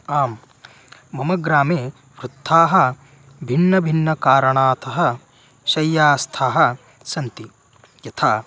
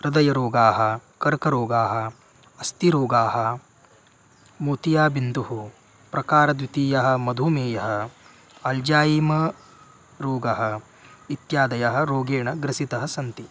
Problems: constant background noise